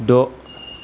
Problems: constant background noise